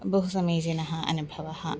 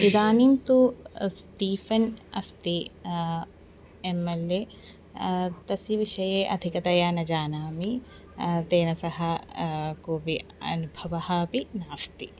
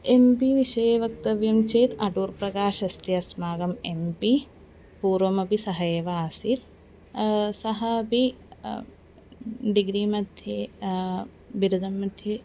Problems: constant background noise